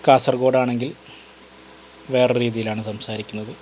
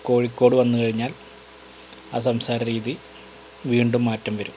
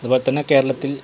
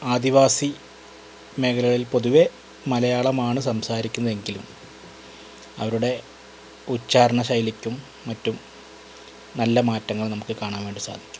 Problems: constant background noise